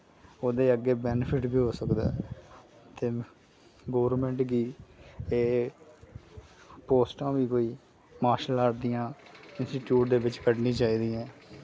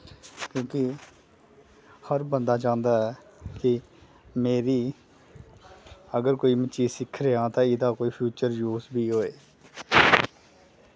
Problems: background sounds at intervals